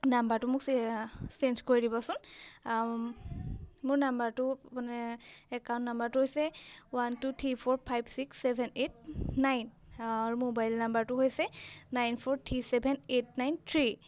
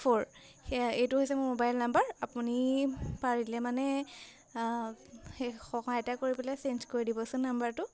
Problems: none marked